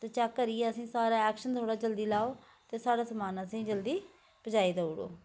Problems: constant background noise